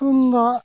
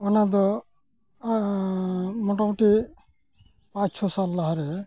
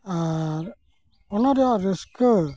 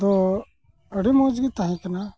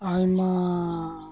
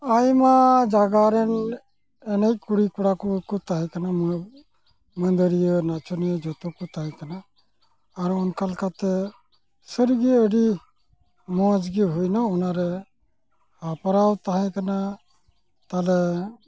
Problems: constant background noise